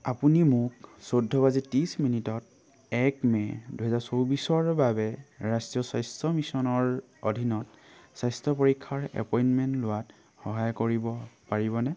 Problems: constant background noise